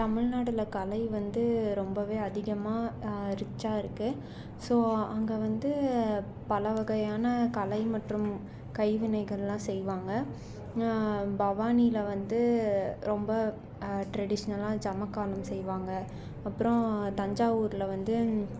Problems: none marked